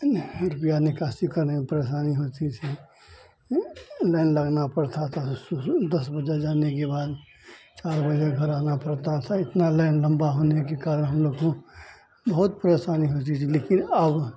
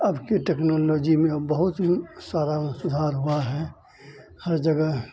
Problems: constant background noise